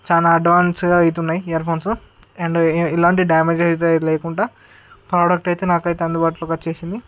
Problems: none marked